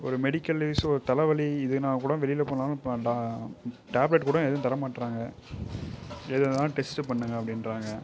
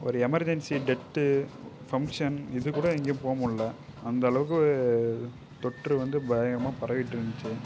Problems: background sounds at intervals